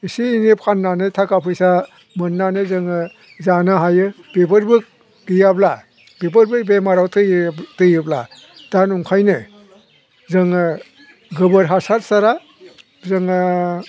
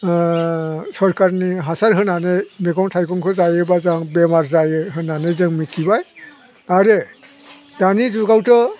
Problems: constant background noise